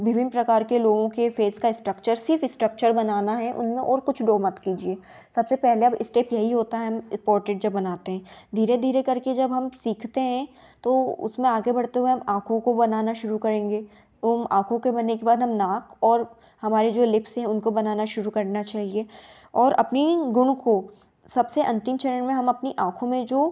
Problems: background sounds at intervals